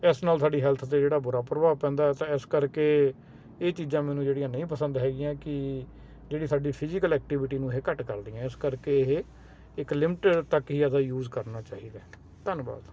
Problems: constant background noise